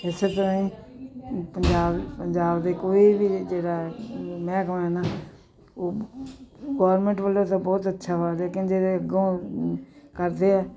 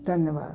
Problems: continuous background conversations